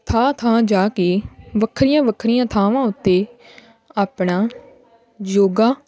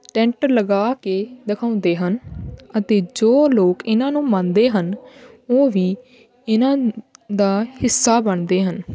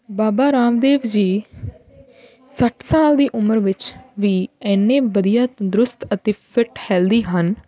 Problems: none marked